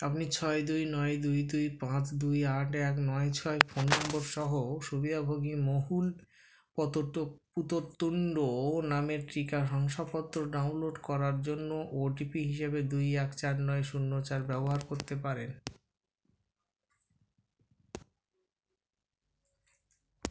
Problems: constant background noise